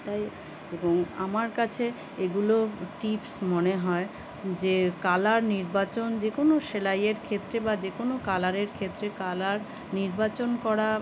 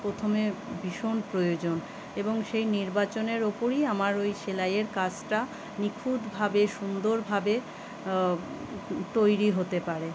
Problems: constant background noise